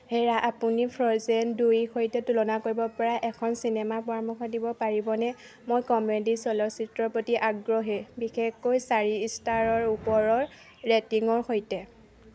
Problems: none marked